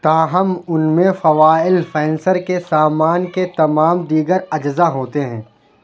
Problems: none marked